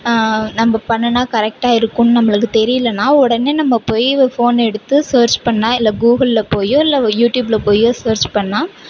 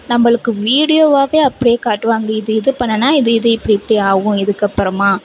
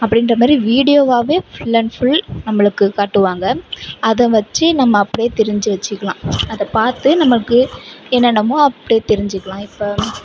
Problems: background sounds at intervals, background conversations at intervals, low volume